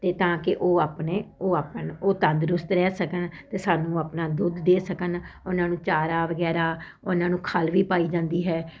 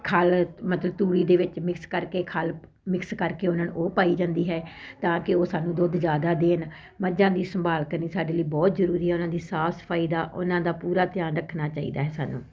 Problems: constant background noise